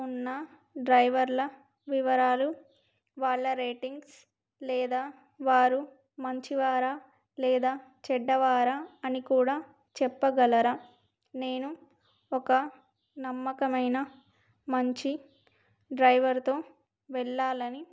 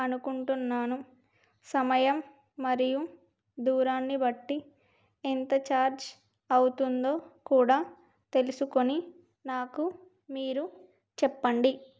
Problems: none marked